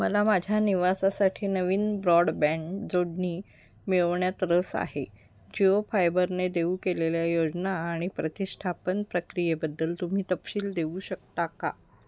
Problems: constant background noise